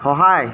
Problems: constant background noise